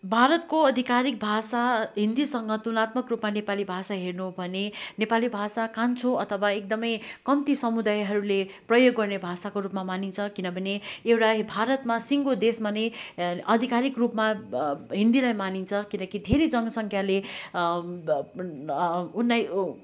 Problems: none marked